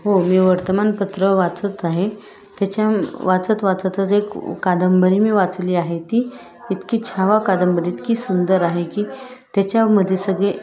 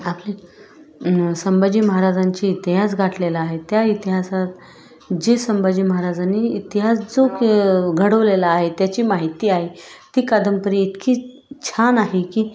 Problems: constant background noise, continuous background conversations